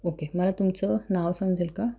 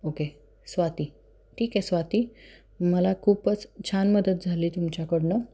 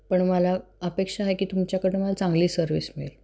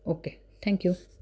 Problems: constant background noise